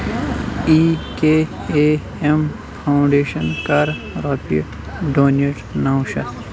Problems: constant background noise